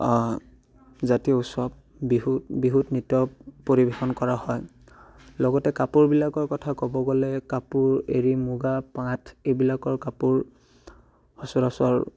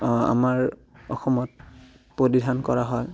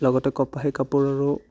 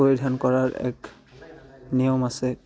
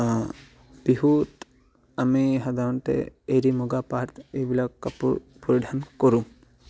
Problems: background sounds at intervals